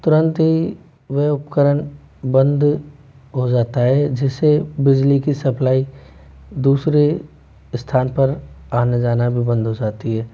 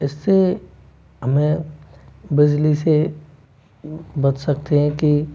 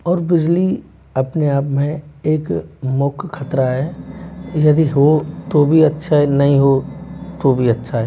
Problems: none marked